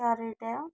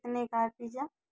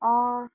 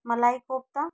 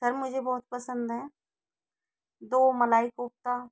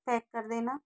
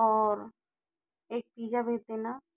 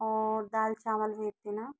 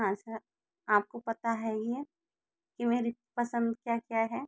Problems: low volume